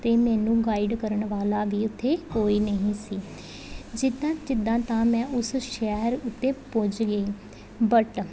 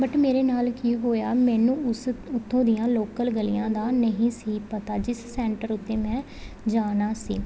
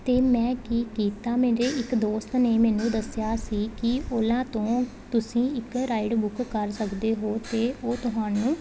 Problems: none marked